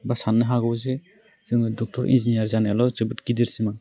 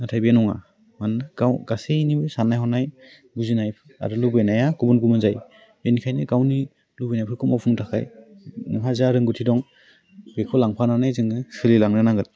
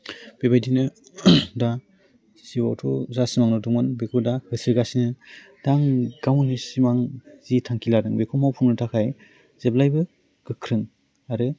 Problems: none marked